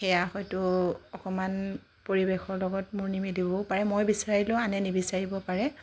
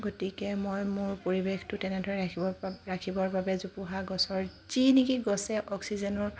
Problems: none marked